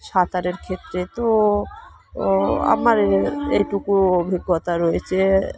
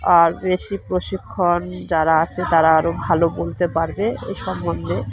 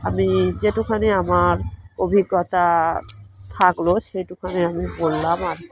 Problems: constant background noise, continuous background conversations